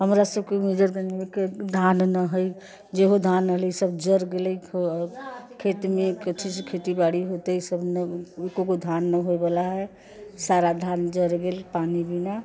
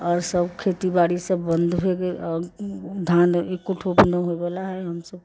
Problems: background sounds at intervals, background conversations at intervals